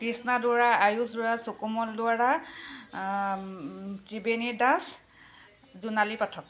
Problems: none marked